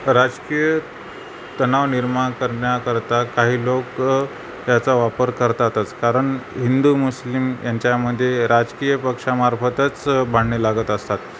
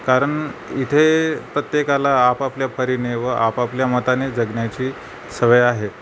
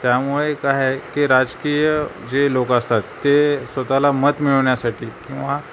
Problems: none marked